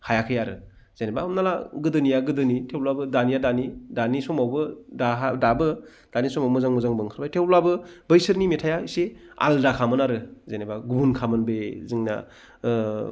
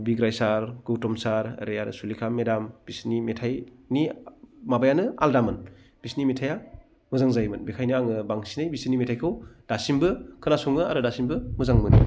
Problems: low volume